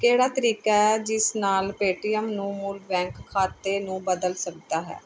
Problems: none marked